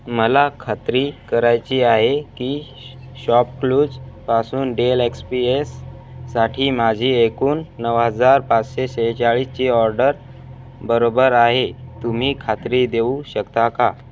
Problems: constant background noise, background conversations at intervals